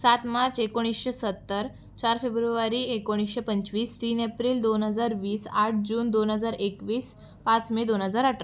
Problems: constant background noise, background conversations at intervals